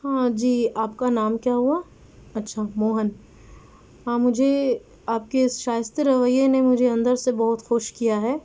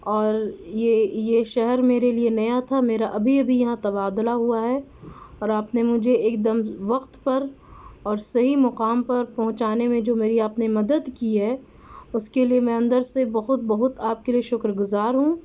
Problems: background sounds at intervals